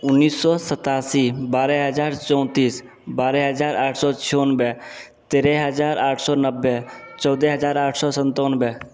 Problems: none marked